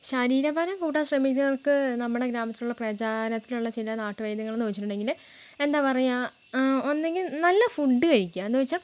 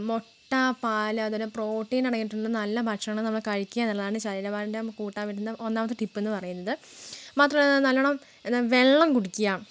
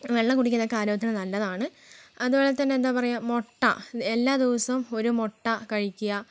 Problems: background sounds at intervals